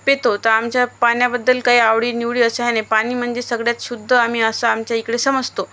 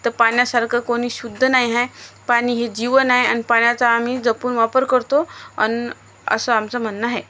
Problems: constant background noise